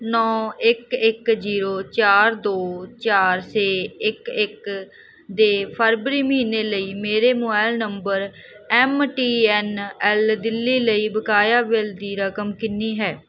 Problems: background sounds at intervals